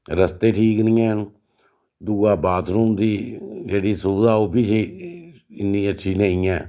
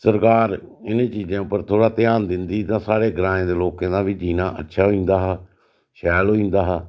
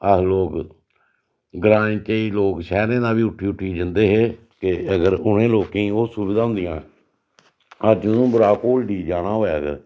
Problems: none marked